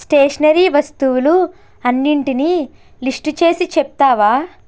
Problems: constant background noise